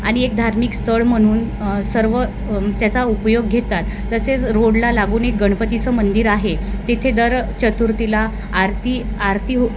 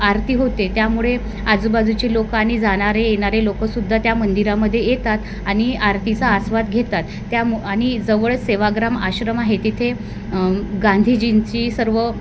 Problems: constant background noise